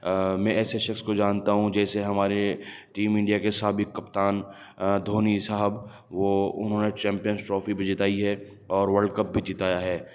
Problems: none marked